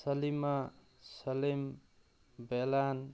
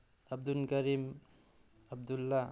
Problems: background sounds at intervals